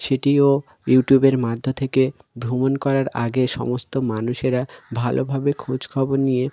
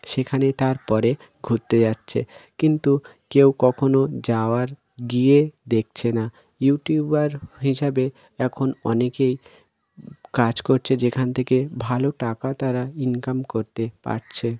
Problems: none marked